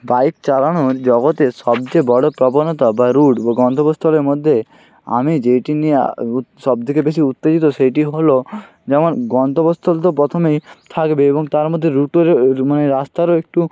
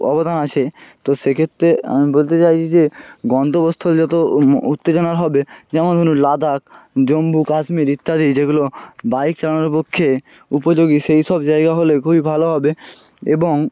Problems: none marked